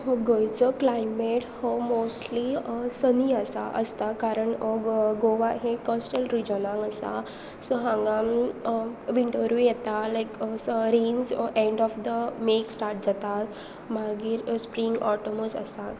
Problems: constant background noise